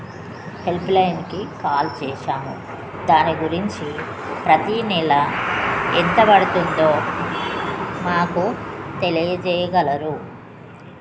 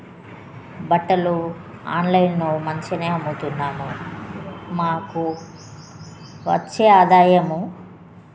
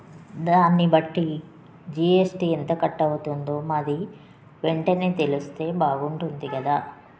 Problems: constant background noise, background conversations at intervals